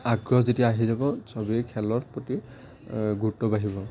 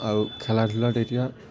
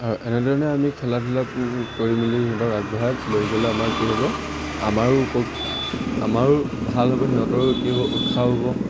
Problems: background sounds at intervals